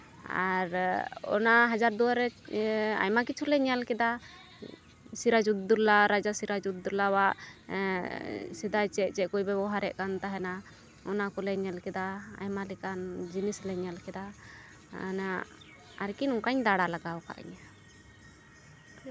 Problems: constant background noise